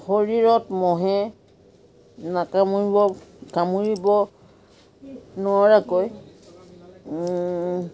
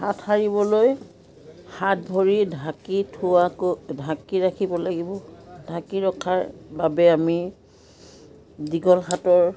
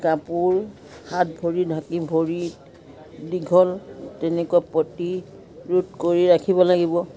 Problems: continuous background conversations